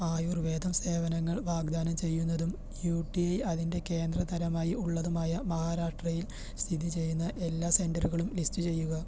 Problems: low volume